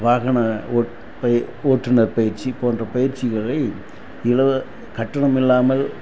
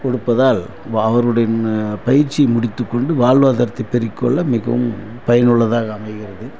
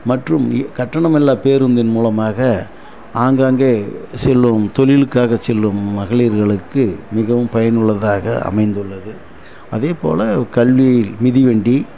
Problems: constant background noise